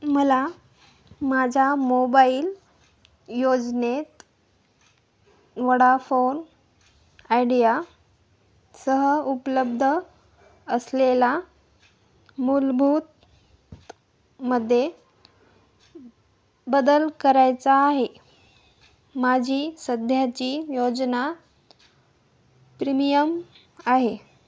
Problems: none marked